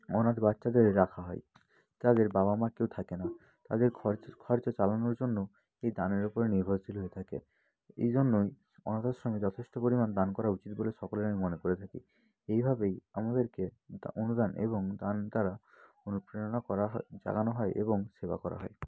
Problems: continuous background conversations